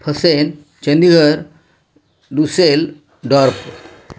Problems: constant background noise